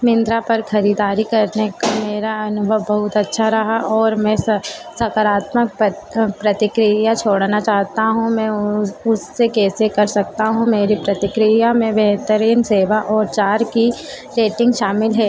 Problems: constant background noise